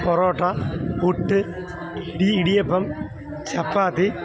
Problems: constant background noise